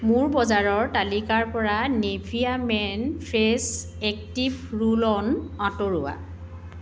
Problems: background sounds at intervals